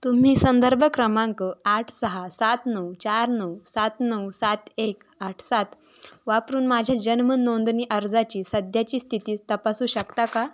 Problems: constant background noise